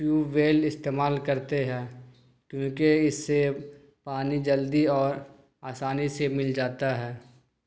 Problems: none marked